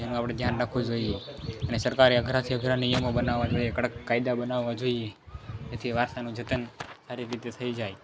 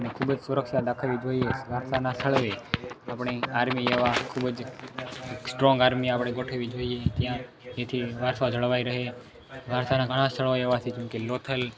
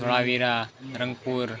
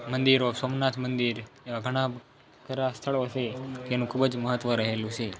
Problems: background sounds at intervals